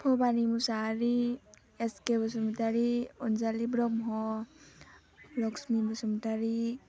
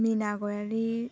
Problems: low volume